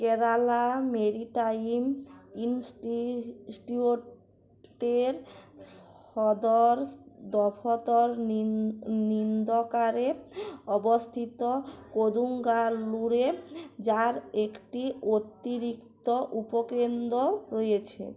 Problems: none marked